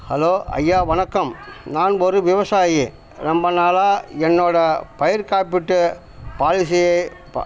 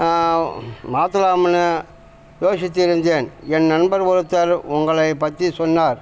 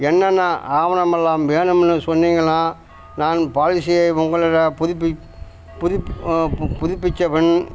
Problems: constant background noise